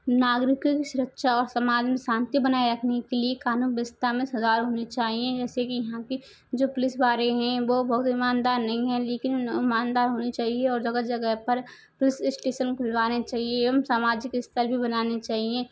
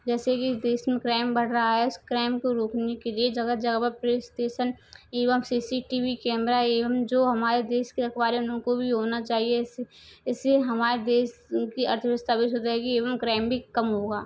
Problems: none marked